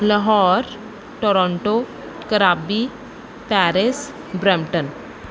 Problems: background sounds at intervals